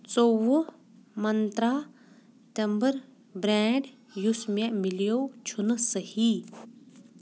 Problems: background sounds at intervals